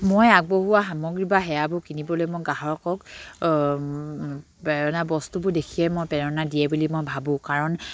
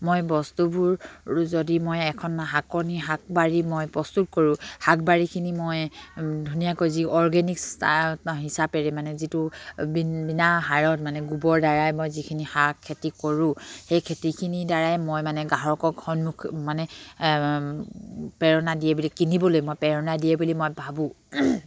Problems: none marked